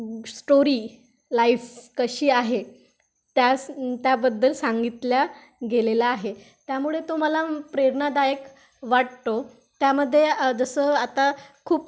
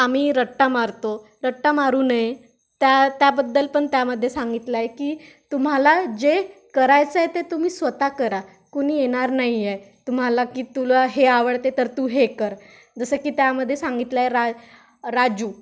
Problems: constant background noise